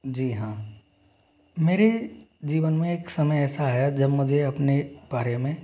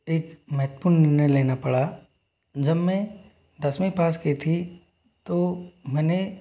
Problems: none marked